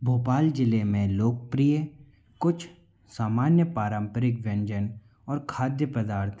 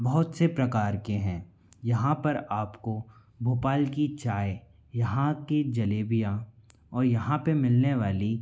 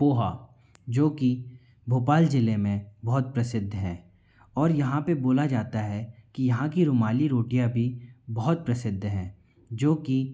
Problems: background sounds at intervals